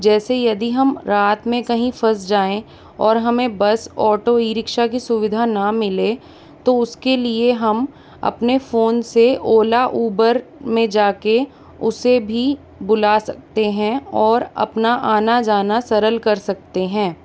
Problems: constant background noise